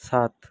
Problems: none marked